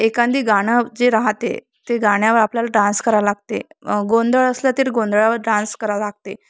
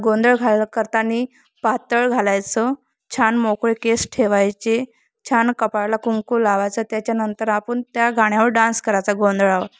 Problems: constant background noise